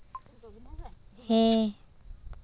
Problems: constant background noise